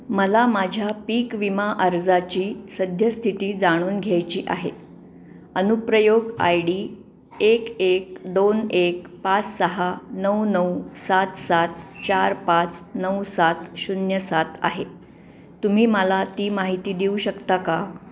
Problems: background sounds at intervals